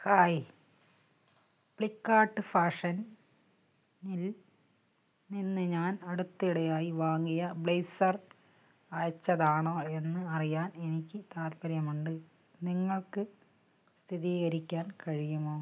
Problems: none marked